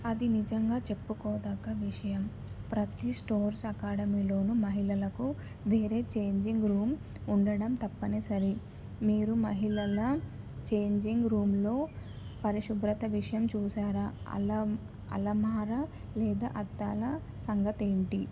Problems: constant background noise, low volume